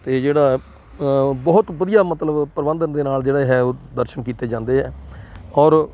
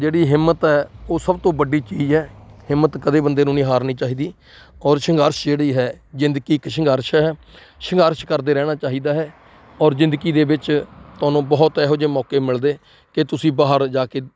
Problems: constant background noise